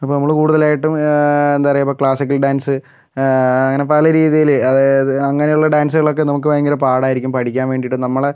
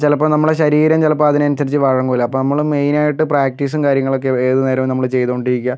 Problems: none marked